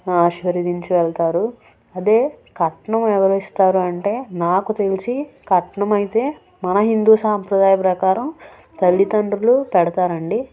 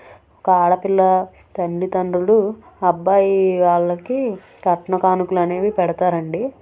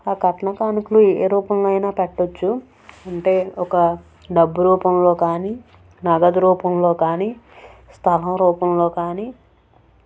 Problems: none marked